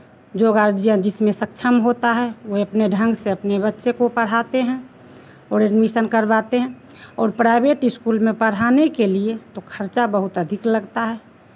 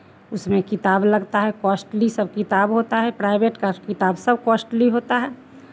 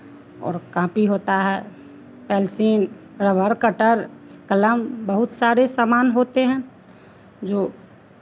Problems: none marked